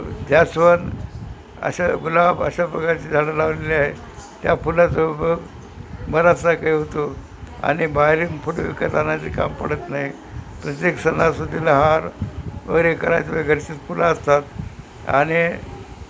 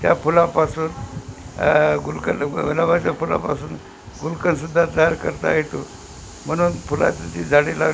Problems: constant background noise